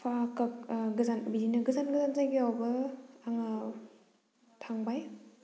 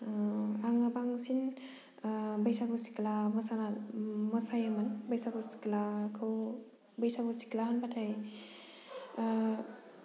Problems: low volume